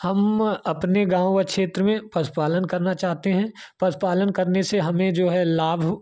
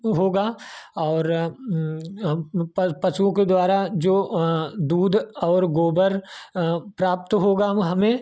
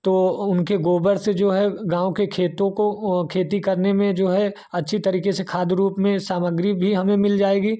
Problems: constant background noise